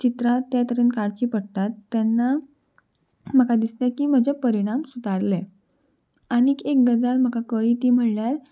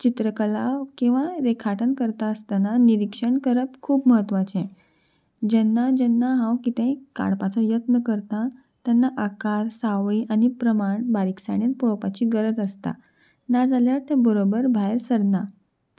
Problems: background sounds at intervals